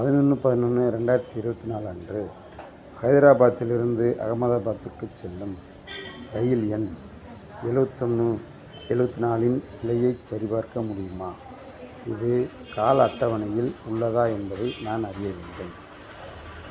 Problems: constant background noise